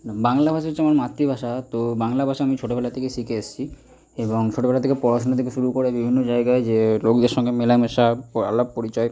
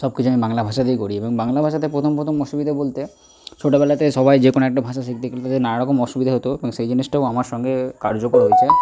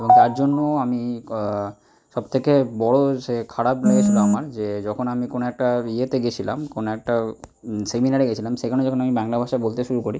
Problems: none marked